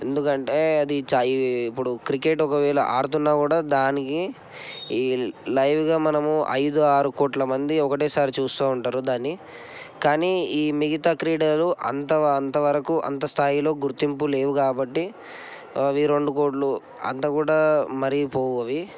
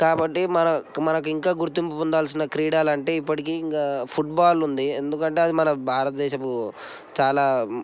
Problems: none marked